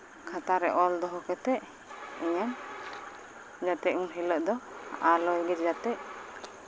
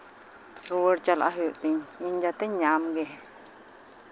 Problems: constant background noise